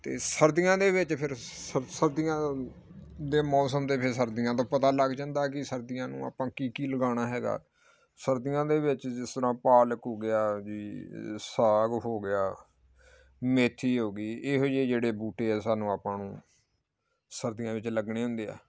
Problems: background sounds at intervals